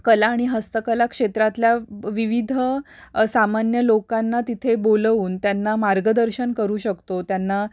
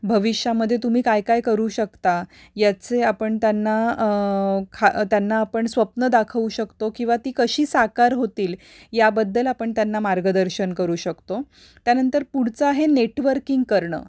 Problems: constant background noise